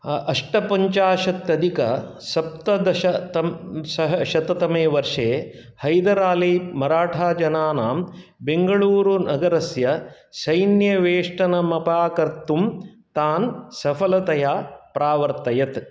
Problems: none marked